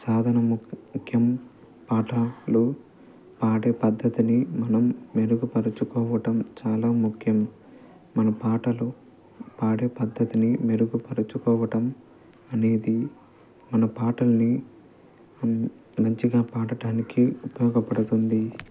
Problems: constant background noise, low volume